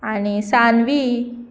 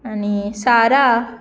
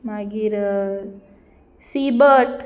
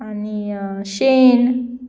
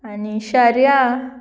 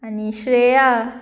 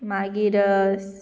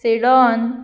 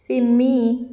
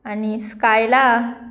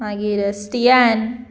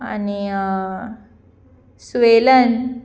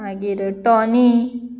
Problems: background sounds at intervals